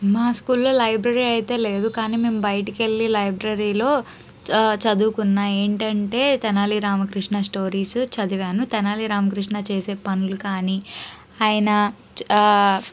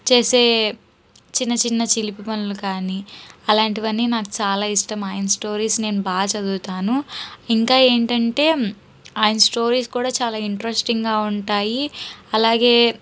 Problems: background sounds at intervals